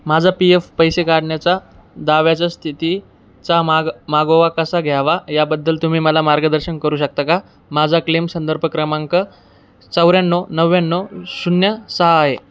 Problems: none marked